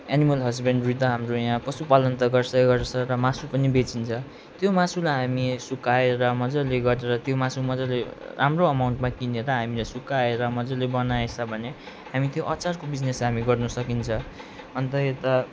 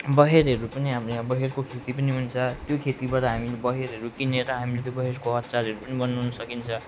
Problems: none marked